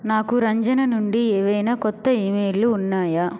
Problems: constant background noise